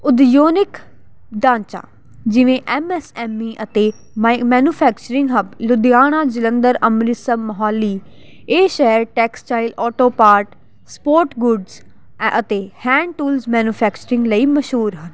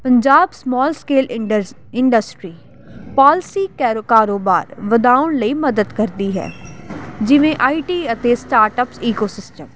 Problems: none marked